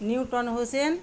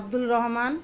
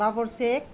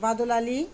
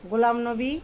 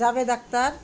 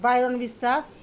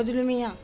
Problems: constant background noise, background conversations at intervals